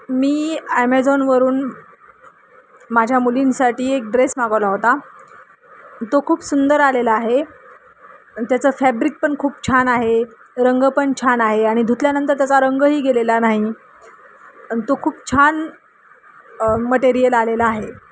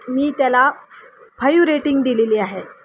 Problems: none marked